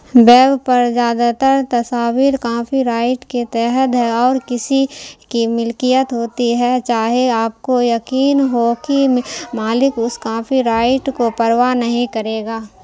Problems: constant background noise